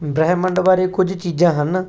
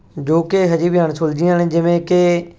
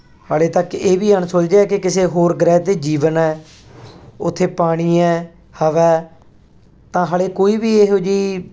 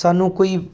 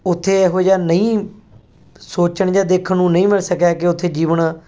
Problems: background sounds at intervals